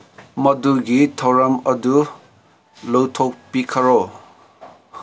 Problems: constant background noise